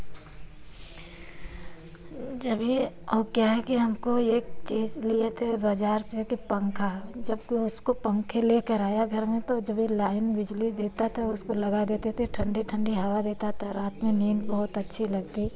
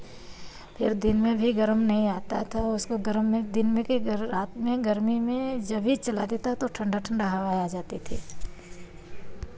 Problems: constant background noise